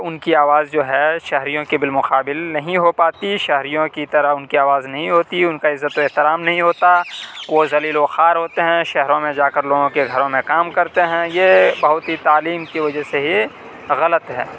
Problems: constant background noise